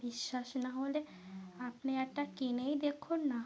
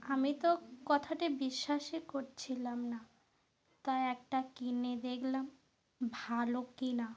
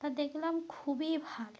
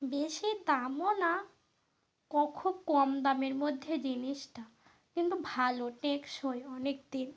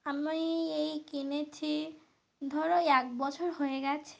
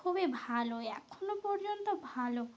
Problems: constant background noise